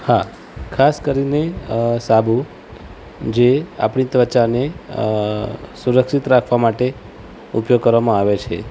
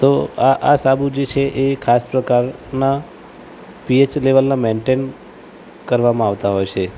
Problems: constant background noise